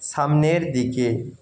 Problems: echo